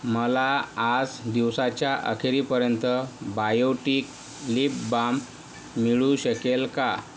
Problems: none marked